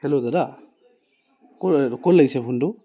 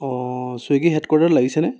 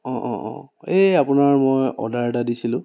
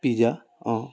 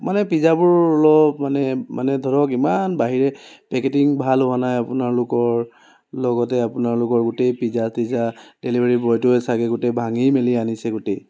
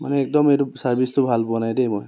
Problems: constant background noise